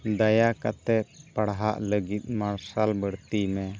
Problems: none marked